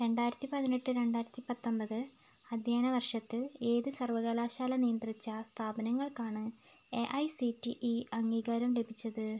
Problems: none marked